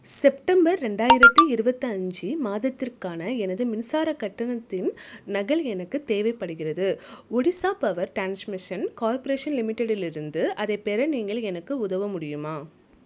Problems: none marked